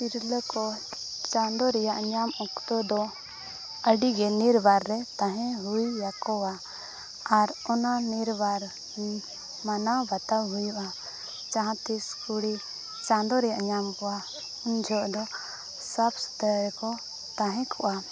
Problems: background sounds at intervals, background conversations at intervals